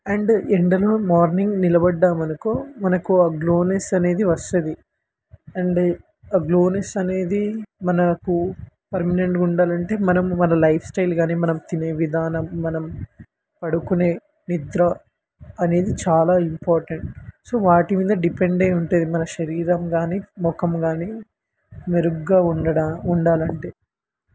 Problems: constant background noise